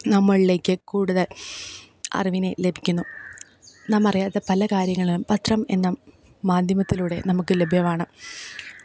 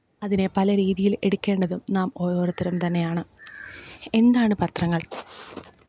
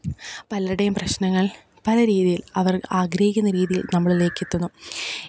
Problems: background sounds at intervals